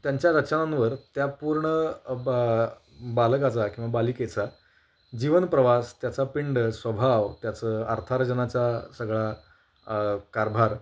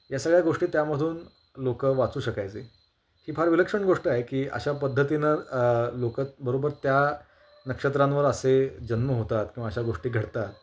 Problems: constant background noise, background conversations at intervals